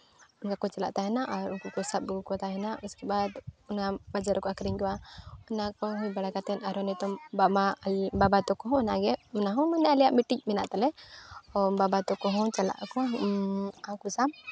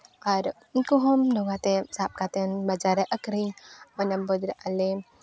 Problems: background sounds at intervals, continuous background conversations